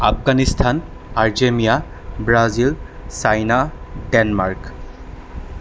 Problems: constant background noise